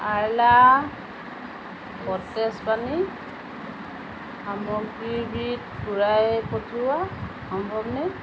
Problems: constant background noise